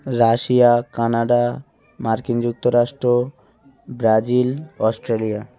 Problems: none marked